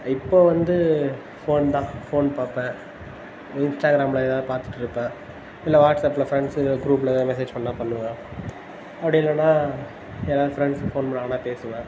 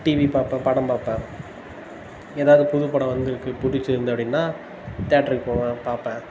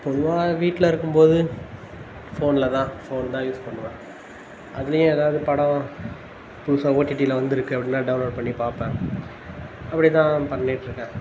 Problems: constant background noise